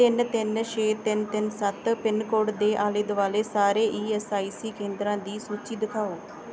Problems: background sounds at intervals